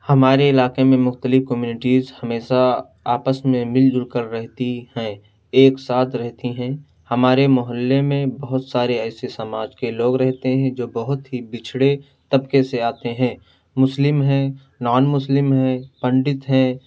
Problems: none marked